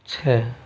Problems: low volume